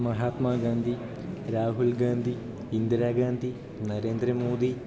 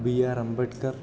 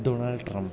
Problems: none marked